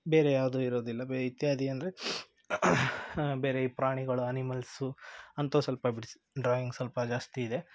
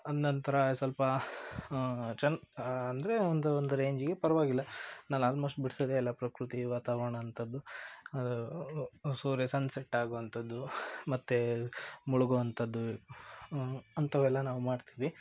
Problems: background sounds at intervals